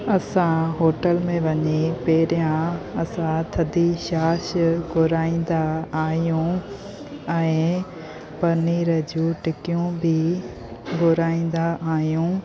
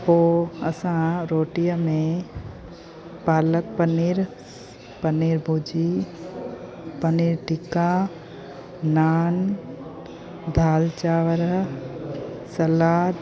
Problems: constant background noise